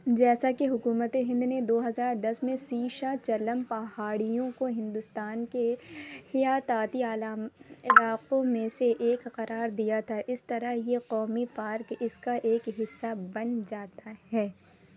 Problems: constant background noise